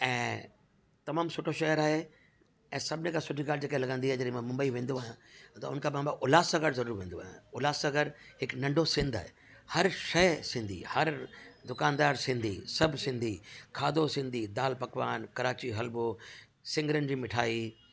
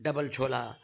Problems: constant background noise